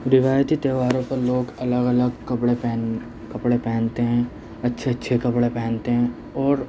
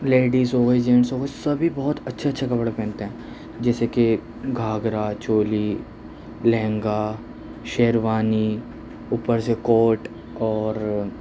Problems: constant background noise